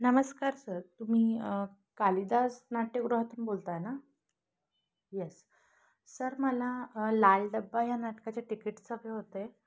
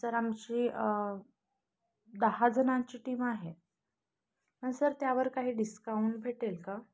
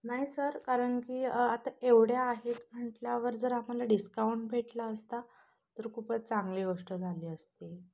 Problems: none marked